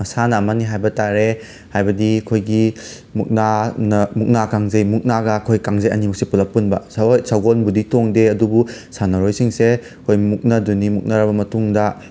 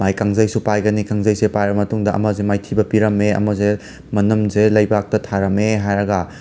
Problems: background sounds at intervals